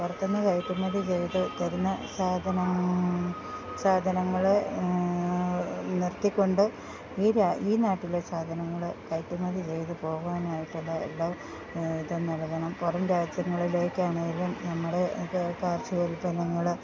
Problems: background sounds at intervals, low volume